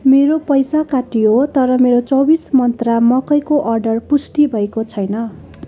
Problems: background conversations at intervals